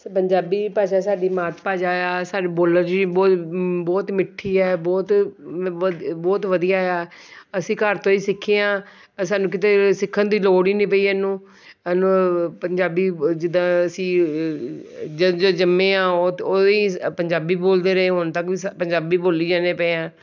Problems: background sounds at intervals